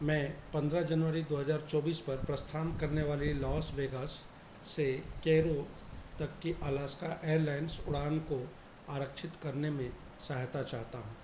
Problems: constant background noise